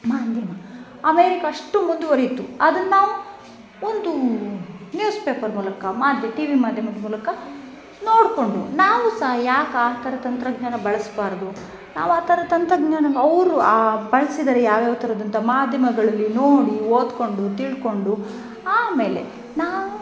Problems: background sounds at intervals